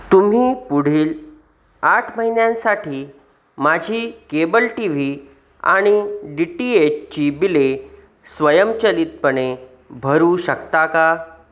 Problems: constant background noise